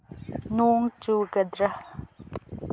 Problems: low volume